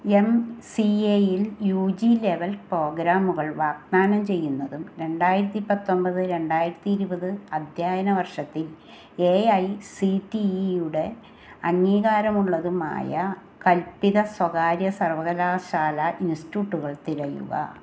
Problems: constant background noise